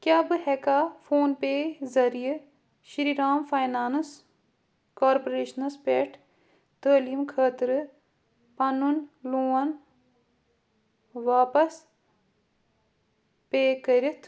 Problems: constant background noise